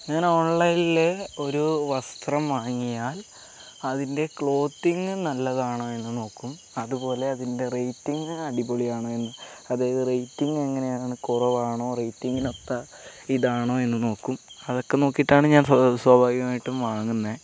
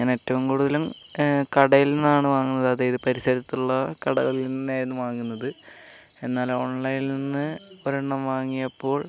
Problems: none marked